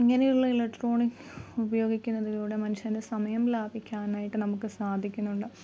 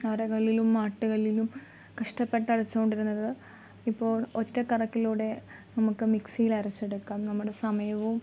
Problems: constant background noise, low volume